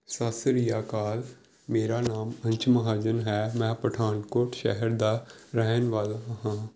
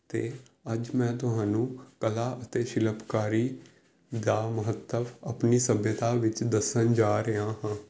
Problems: none marked